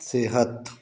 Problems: none marked